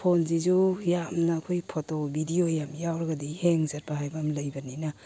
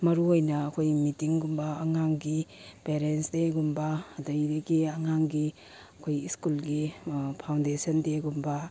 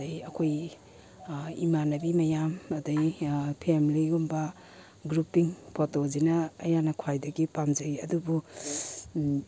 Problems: background sounds at intervals